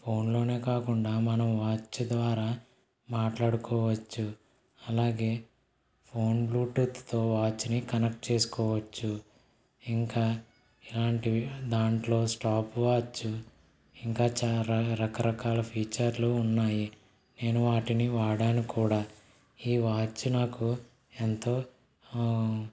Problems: none marked